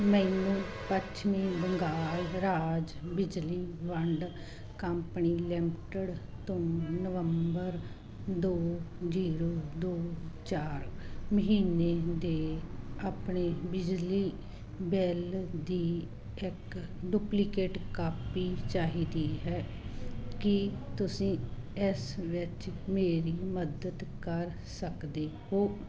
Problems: constant background noise